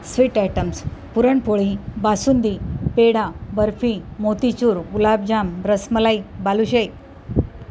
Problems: none marked